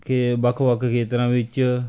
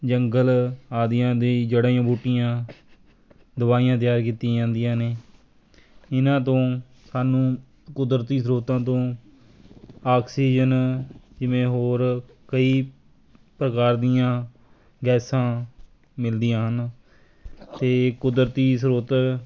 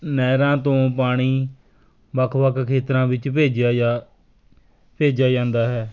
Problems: constant background noise